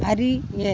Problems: constant background noise